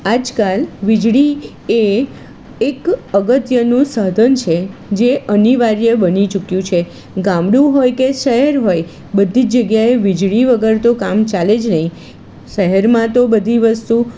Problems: constant background noise